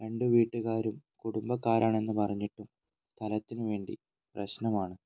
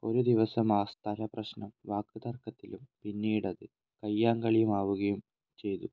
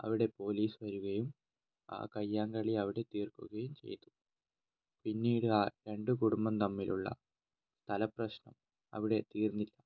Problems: low volume